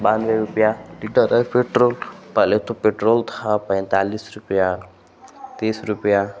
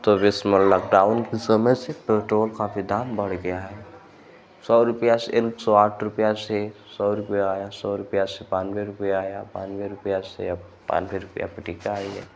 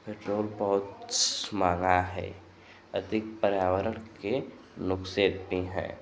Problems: constant background noise